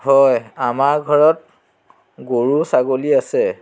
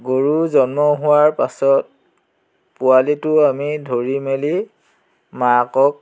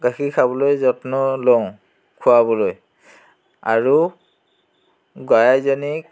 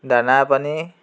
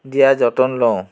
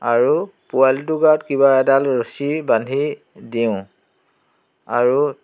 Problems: constant background noise, background conversations at intervals